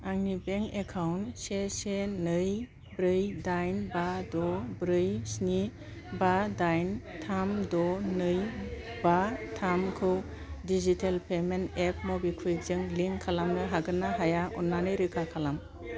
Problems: low volume